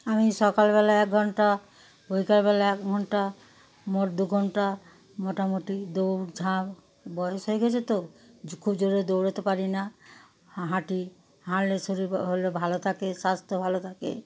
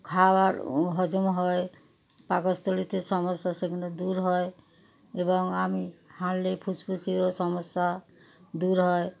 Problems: constant background noise, continuous background conversations